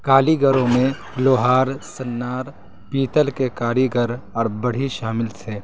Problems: constant background noise